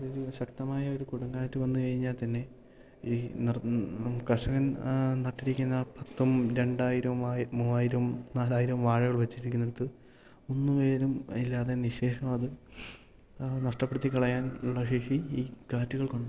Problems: low volume